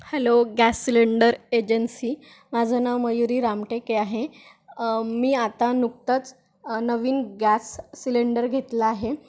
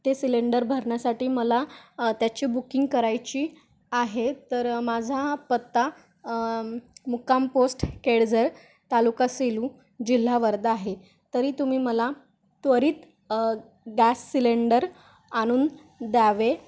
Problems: constant background noise